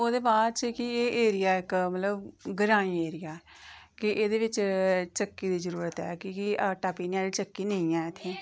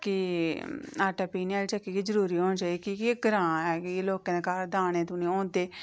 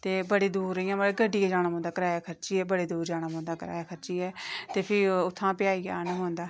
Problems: background sounds at intervals